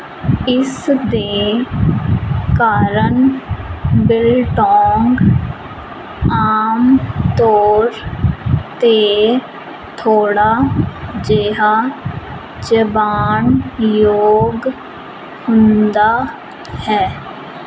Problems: constant background noise